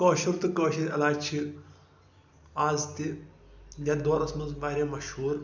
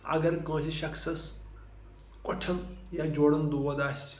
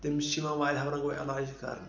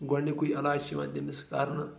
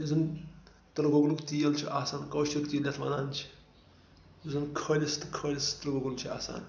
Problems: background sounds at intervals, low volume